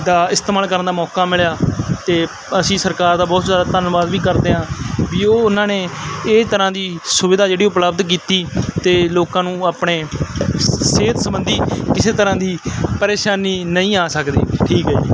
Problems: constant background noise